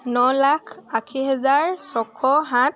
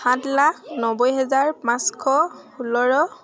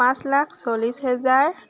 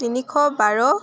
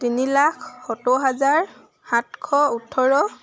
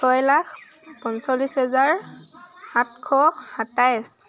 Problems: none marked